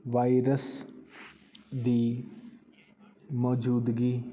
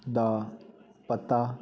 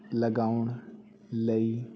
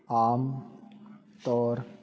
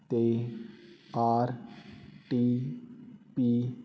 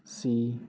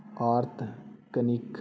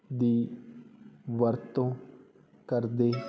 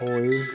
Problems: constant background noise